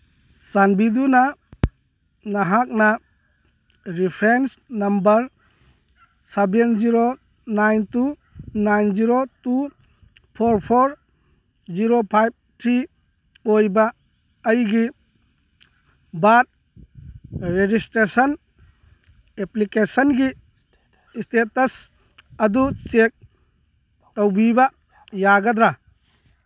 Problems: background sounds at intervals, background conversations at intervals